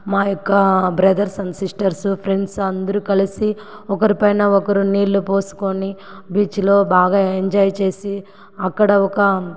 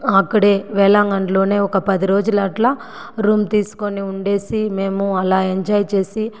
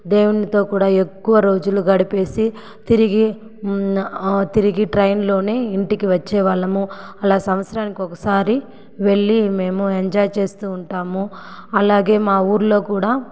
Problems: echo